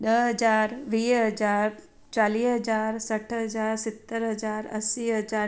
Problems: none marked